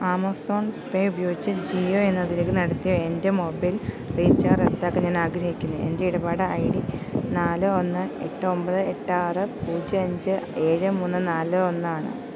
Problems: constant background noise